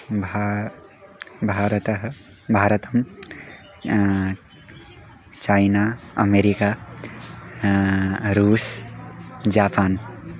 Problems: background sounds at intervals